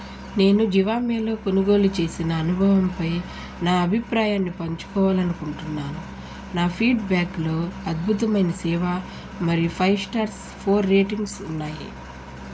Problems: constant background noise